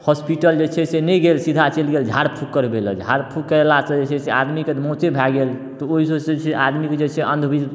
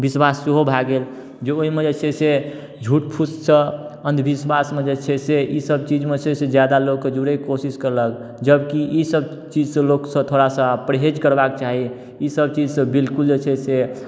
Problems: none marked